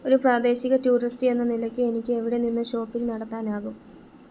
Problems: constant background noise